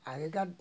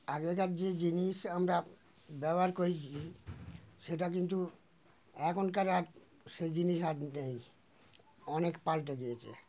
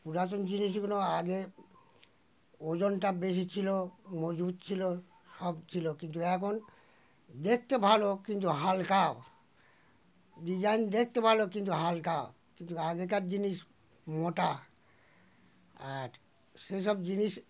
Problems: background sounds at intervals